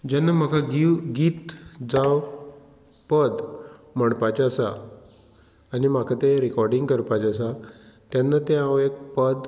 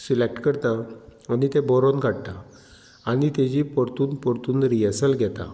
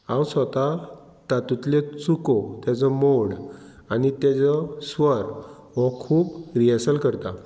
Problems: background sounds at intervals